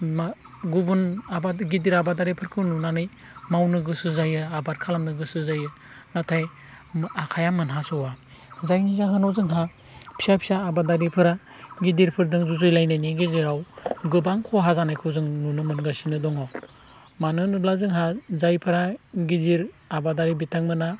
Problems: constant background noise